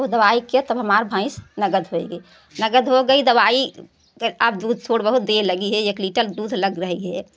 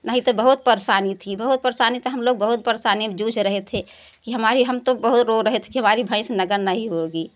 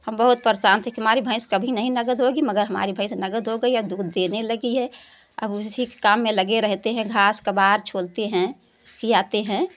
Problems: none marked